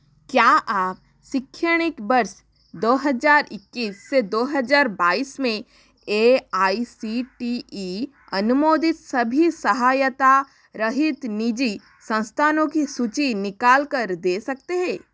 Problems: none marked